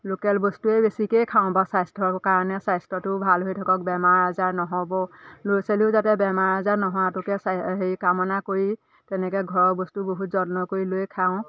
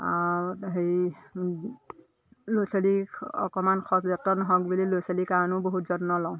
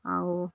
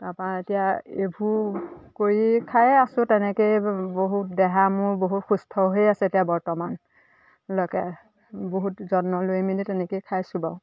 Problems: constant background noise, background conversations at intervals